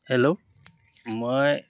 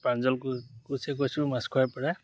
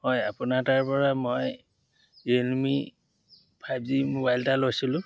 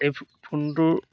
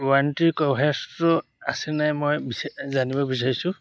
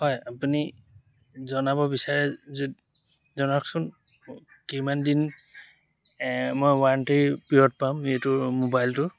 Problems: none marked